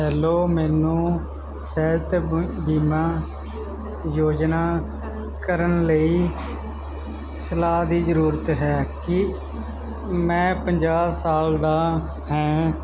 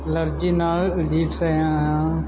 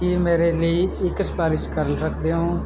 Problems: none marked